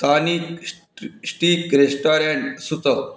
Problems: background sounds at intervals, background conversations at intervals